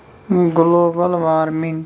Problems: constant background noise